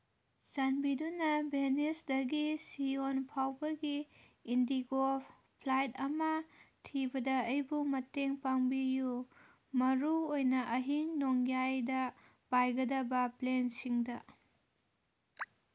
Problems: background sounds at intervals